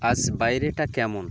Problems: constant background noise